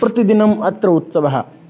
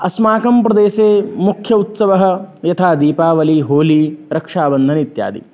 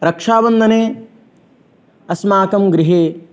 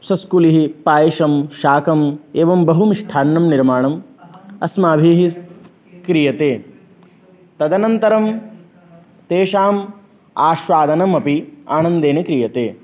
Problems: none marked